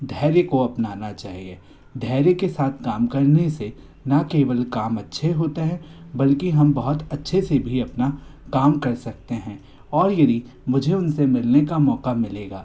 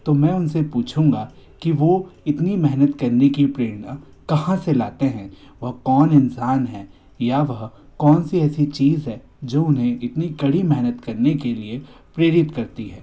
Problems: constant background noise